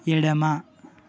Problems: constant background noise